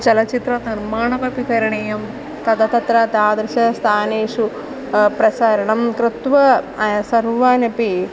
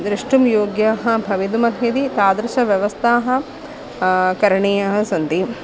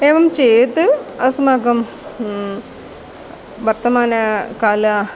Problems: constant background noise